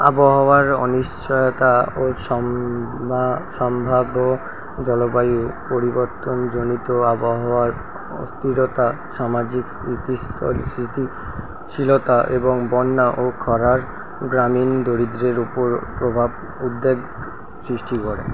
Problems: constant background noise